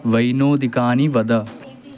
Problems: constant background noise, continuous background conversations